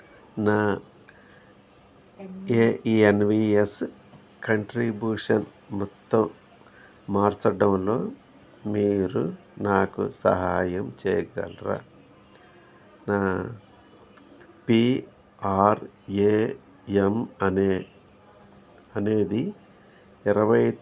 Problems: background conversations at intervals